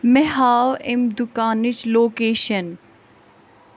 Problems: constant background noise